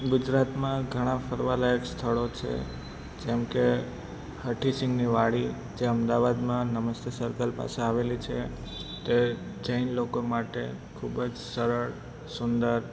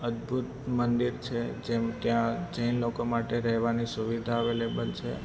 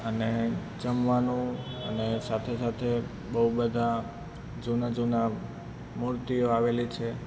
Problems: constant background noise